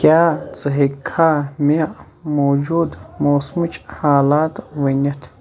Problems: none marked